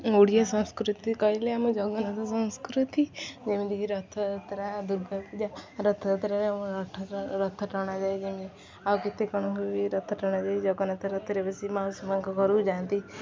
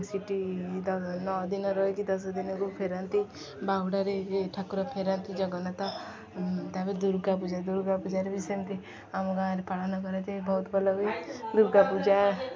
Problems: constant background noise, continuous background conversations